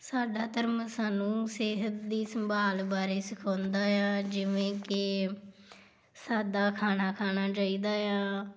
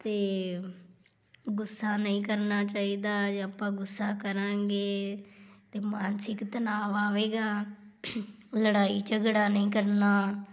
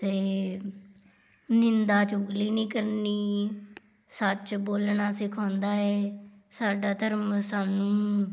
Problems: none marked